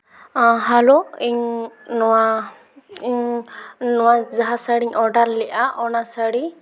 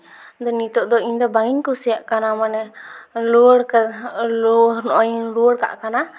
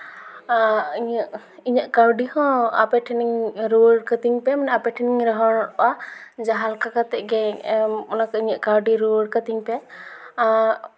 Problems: echo